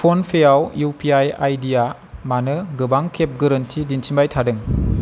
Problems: constant background noise